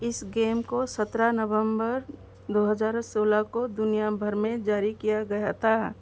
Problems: none marked